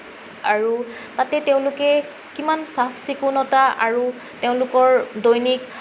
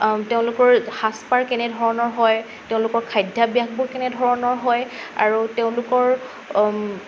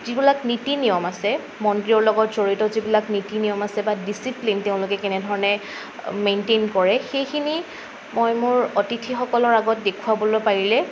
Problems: none marked